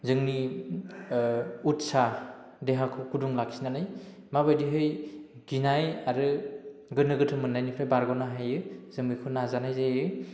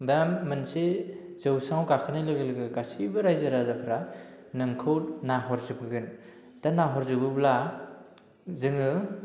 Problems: low volume